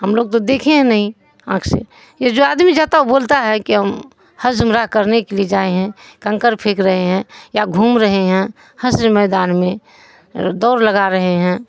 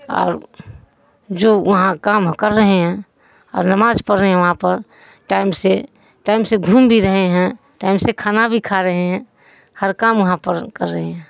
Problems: none marked